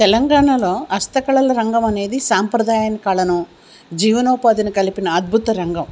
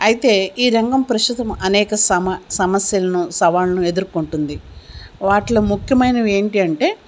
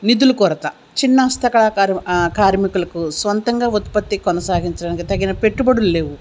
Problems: constant background noise